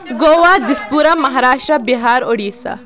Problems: constant background noise